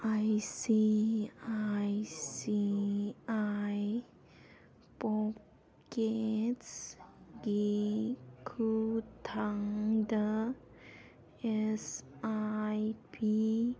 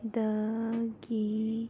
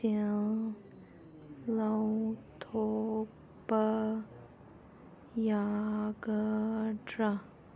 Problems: background sounds at intervals